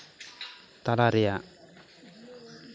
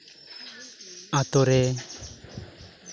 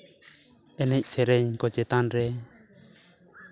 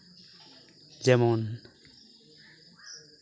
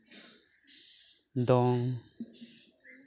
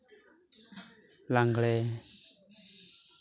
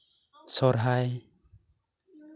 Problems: background sounds at intervals, background conversations at intervals